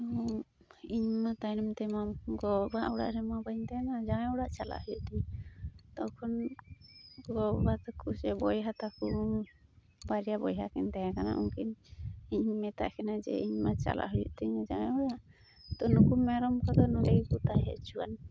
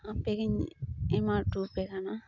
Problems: constant background noise